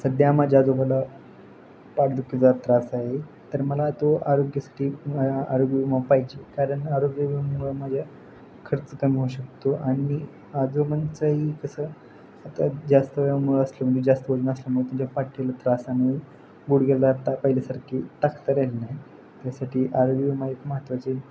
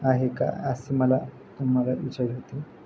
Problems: constant background noise